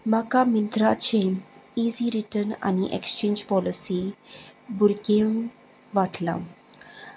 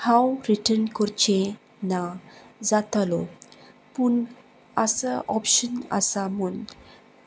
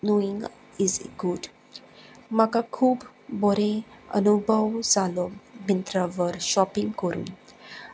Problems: none marked